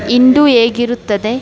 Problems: background conversations at intervals